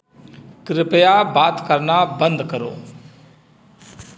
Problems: constant background noise